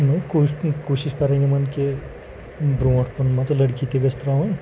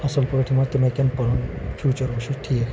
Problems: constant background noise